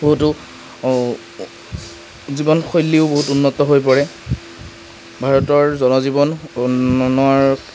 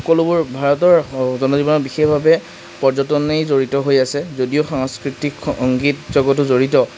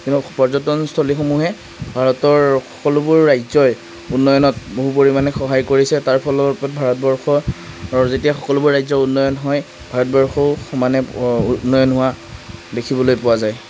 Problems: constant background noise